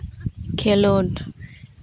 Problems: background conversations at intervals